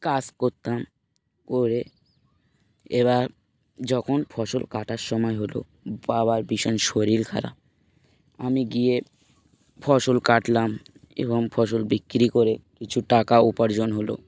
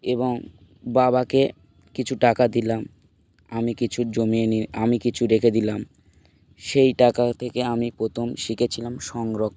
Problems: constant background noise